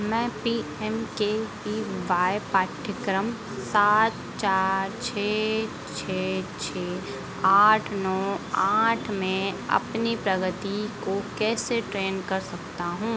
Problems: constant background noise